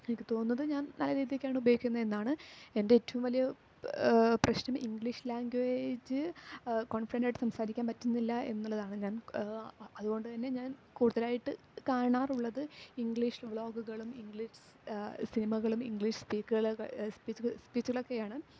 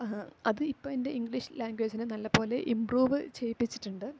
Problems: low volume